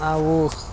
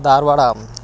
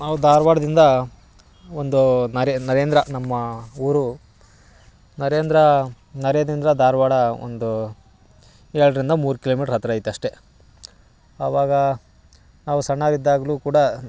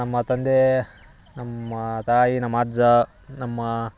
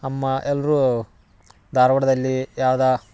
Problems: none marked